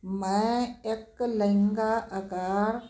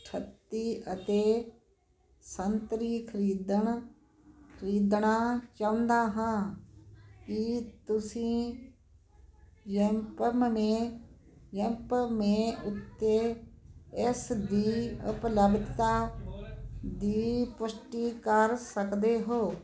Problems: constant background noise